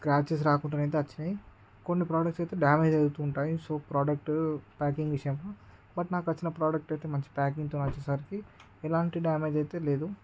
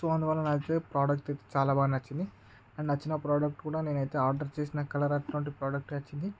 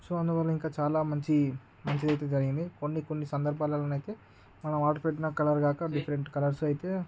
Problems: constant background noise